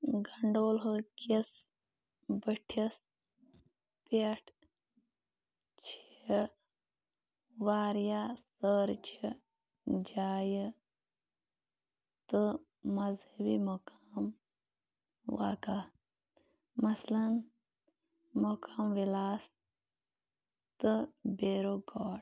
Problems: constant background noise, low volume